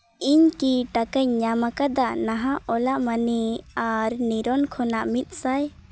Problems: constant background noise